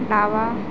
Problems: constant background noise